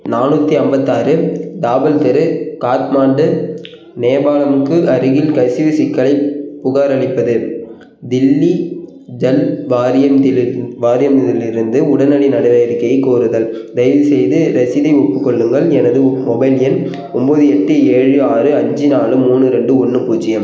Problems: background sounds at intervals